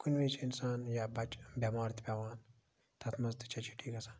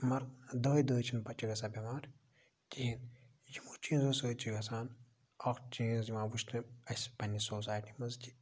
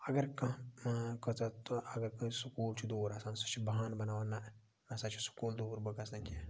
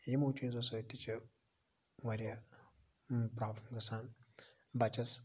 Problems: low volume